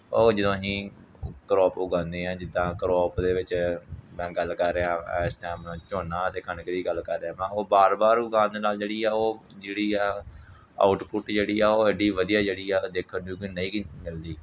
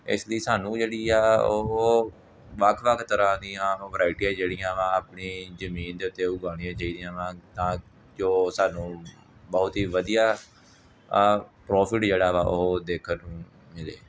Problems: none marked